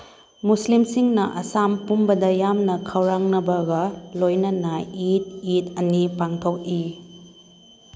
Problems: background sounds at intervals